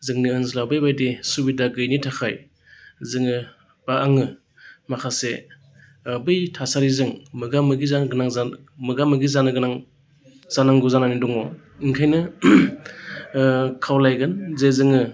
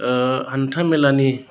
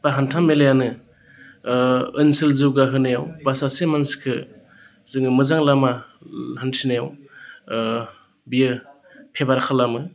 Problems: constant background noise